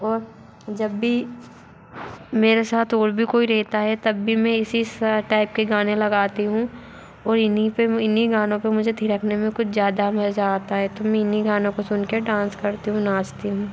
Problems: constant background noise